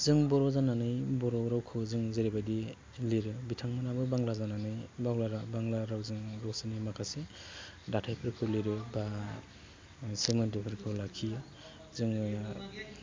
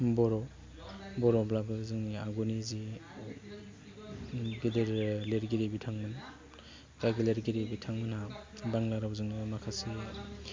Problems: none marked